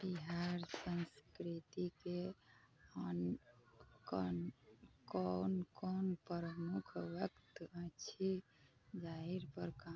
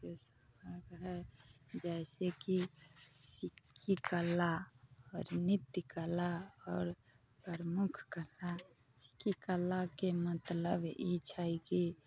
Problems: constant background noise, background conversations at intervals